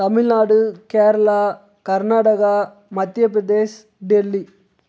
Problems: none marked